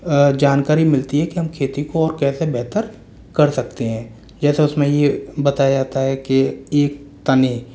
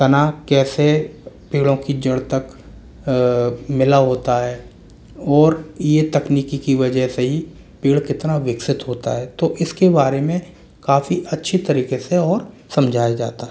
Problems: none marked